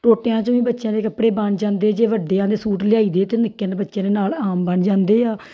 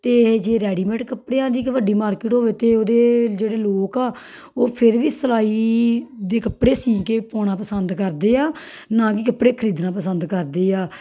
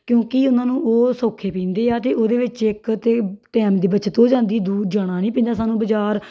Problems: background sounds at intervals